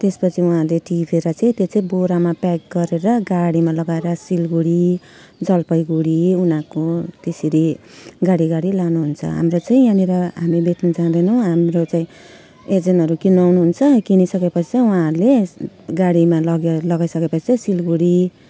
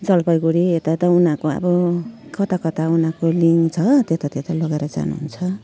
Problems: none marked